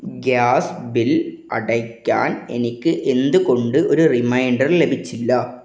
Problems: none marked